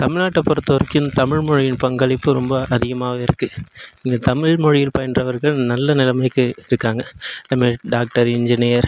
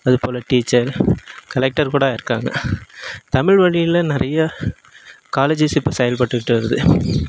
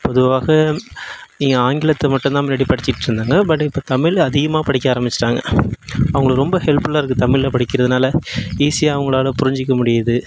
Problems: background sounds at intervals